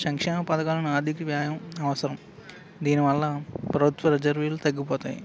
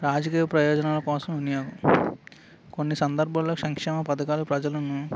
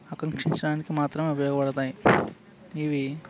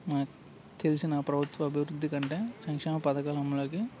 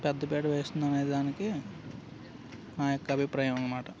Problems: constant background noise